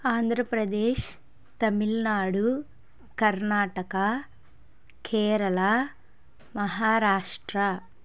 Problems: none marked